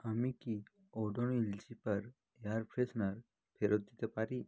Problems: none marked